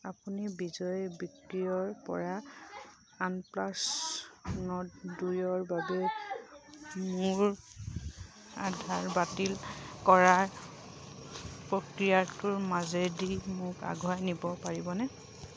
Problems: background sounds at intervals